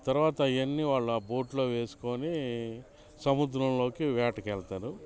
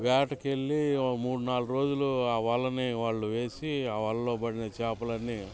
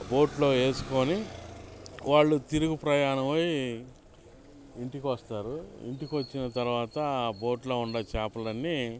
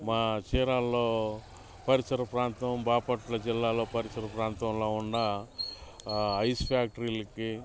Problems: constant background noise